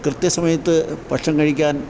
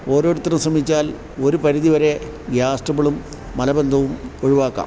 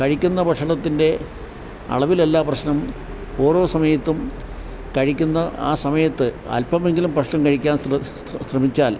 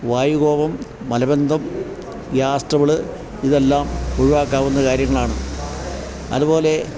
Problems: constant background noise